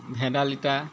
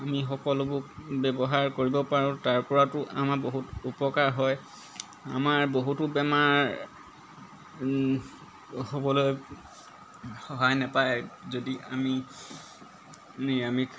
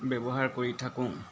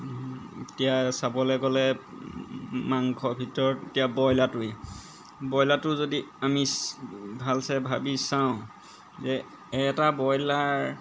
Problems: background sounds at intervals